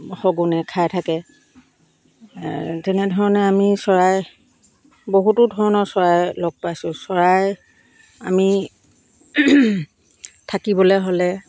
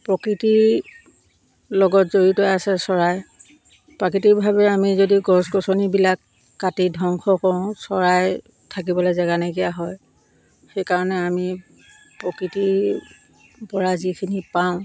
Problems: constant background noise